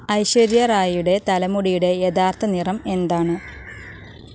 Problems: constant background noise